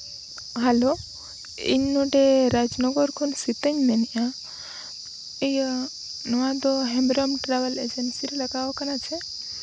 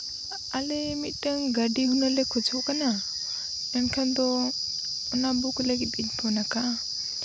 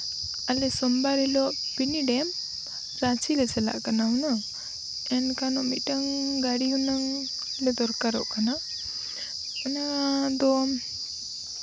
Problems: none marked